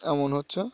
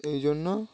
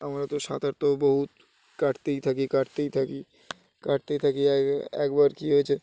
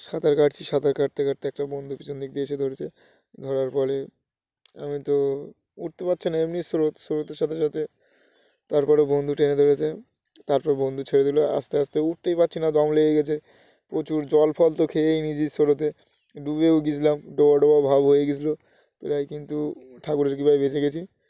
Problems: constant background noise